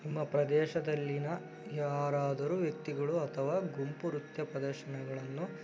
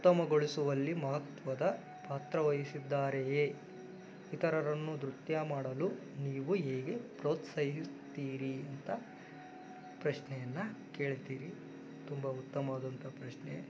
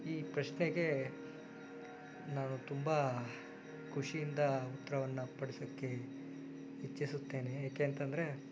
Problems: background sounds at intervals